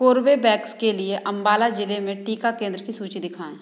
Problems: constant background noise